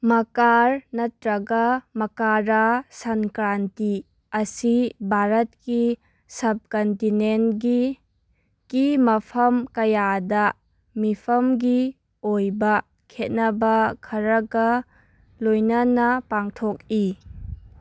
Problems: background sounds at intervals